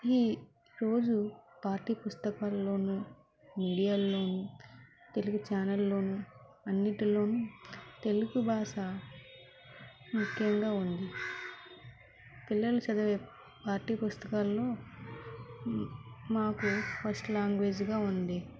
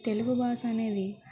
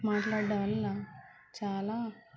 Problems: constant background noise, background conversations at intervals, low volume